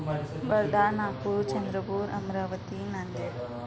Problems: constant background noise, background conversations at intervals